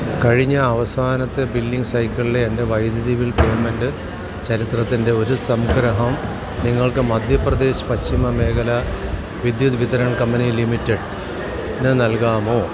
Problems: constant background noise